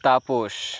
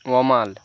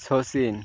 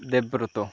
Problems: none marked